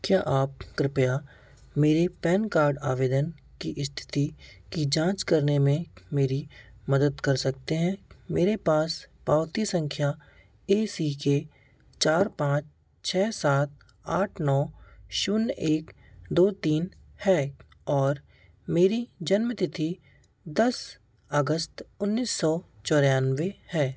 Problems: constant background noise